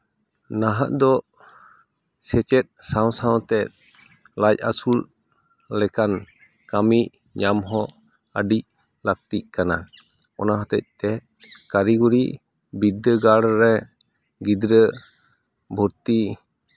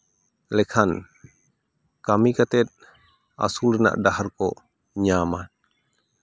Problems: background conversations at intervals